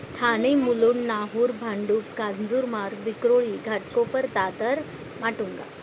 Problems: constant background noise